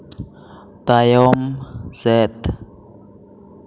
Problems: none marked